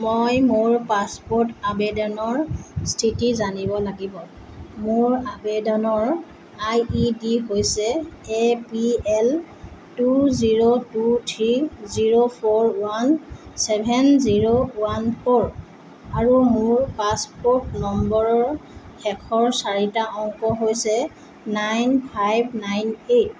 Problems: constant background noise